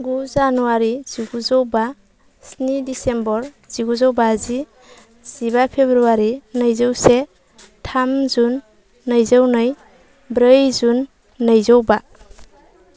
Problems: none marked